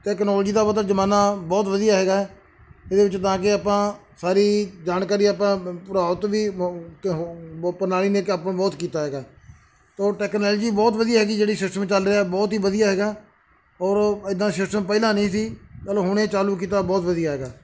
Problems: background sounds at intervals